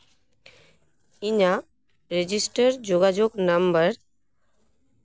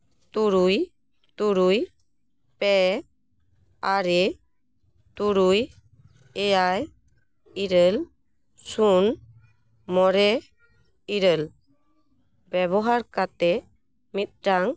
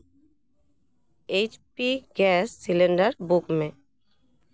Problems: none marked